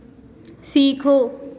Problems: constant background noise, echo